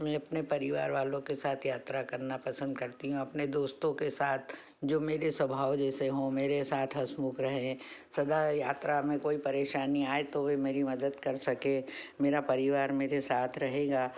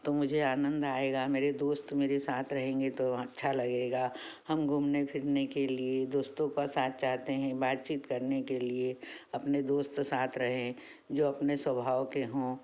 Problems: none marked